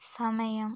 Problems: low volume